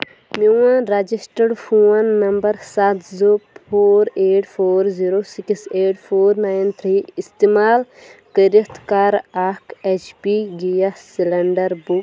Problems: constant background noise